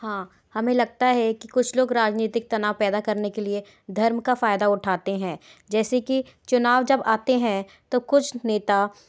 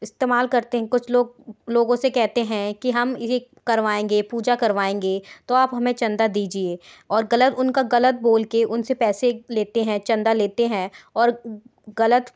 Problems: background sounds at intervals